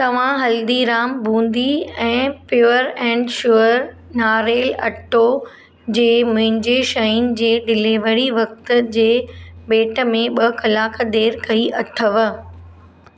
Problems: none marked